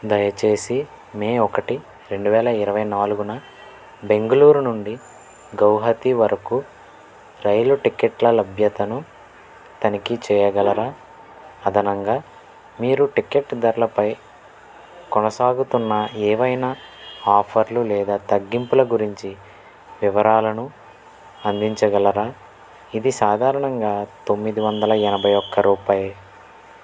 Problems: none marked